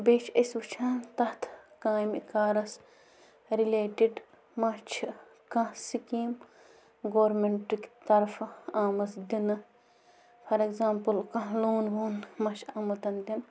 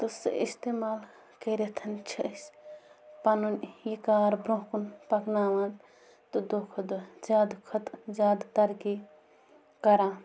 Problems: constant background noise